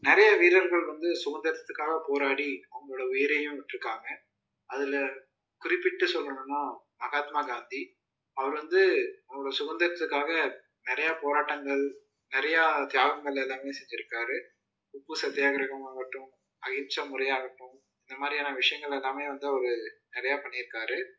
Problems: low volume